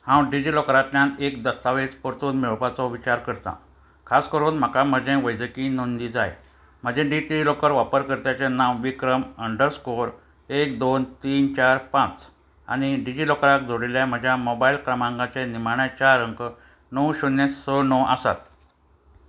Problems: constant background noise